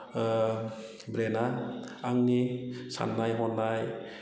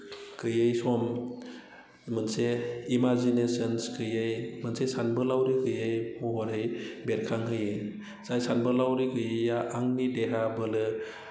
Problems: none marked